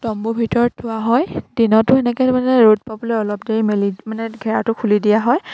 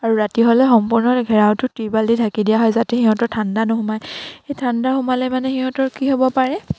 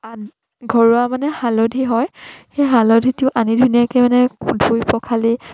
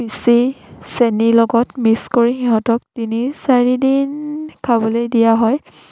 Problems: constant background noise, background conversations at intervals